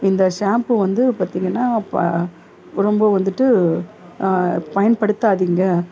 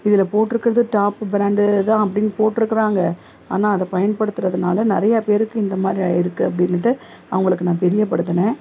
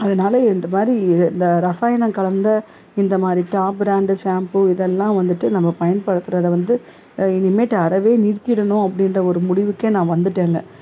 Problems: none marked